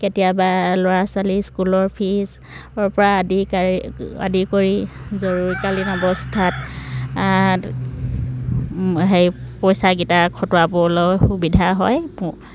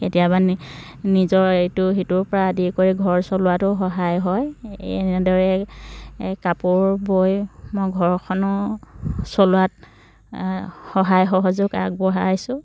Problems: none marked